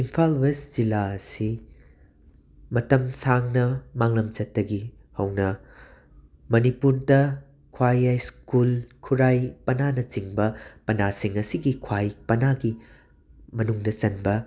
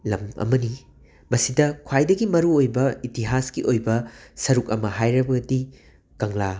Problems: background sounds at intervals